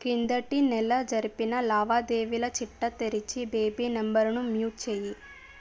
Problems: none marked